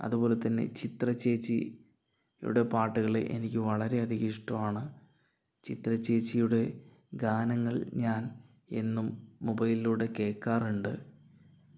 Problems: low volume